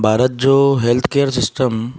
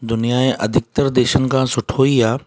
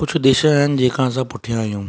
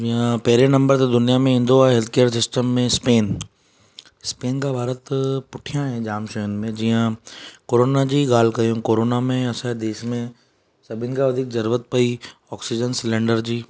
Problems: none marked